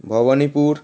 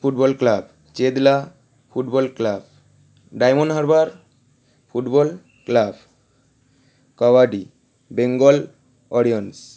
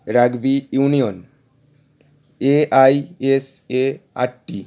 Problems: none marked